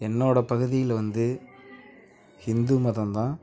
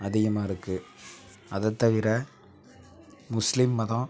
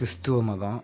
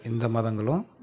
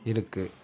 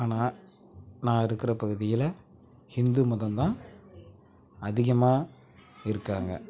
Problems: none marked